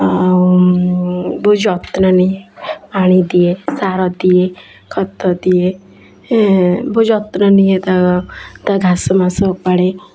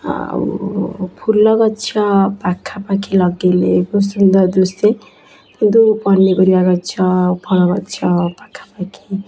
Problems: constant background noise